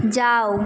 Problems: constant background noise